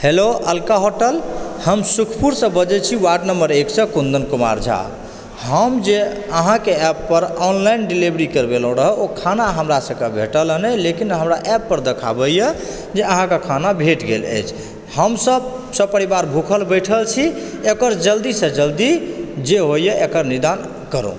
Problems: background sounds at intervals